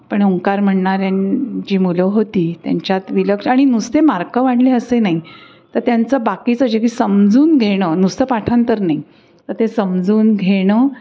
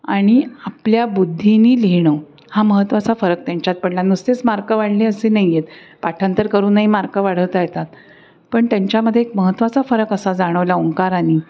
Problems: none marked